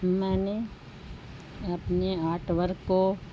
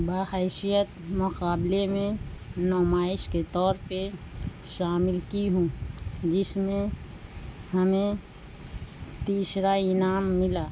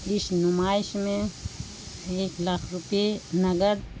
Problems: constant background noise